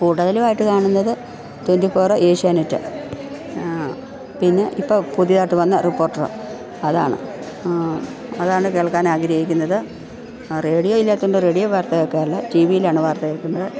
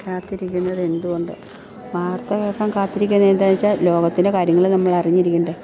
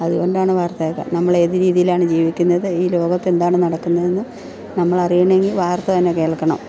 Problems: background sounds at intervals, background conversations at intervals